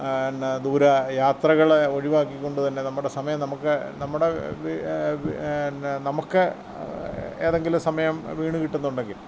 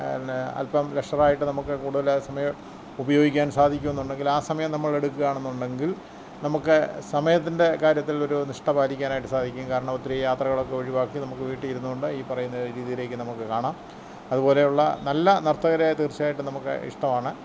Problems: background sounds at intervals